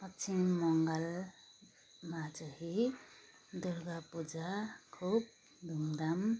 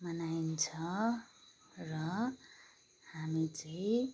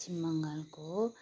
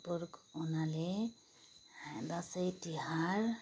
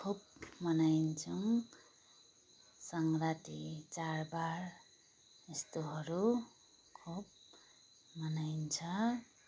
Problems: background sounds at intervals, background conversations at intervals